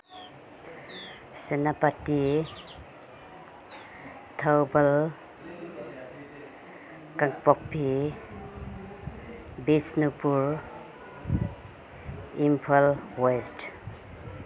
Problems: none marked